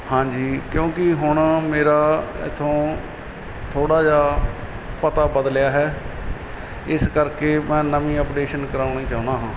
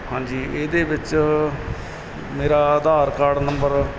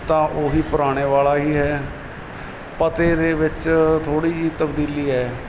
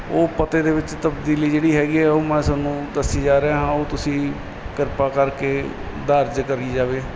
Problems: none marked